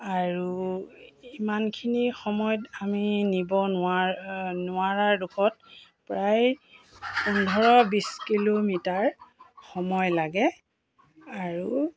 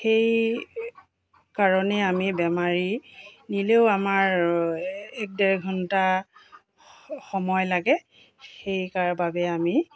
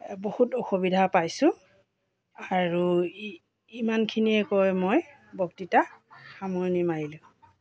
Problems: constant background noise